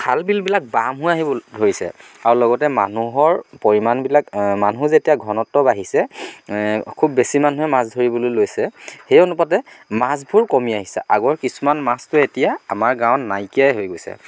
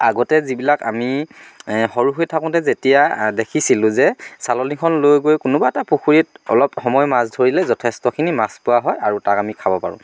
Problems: none marked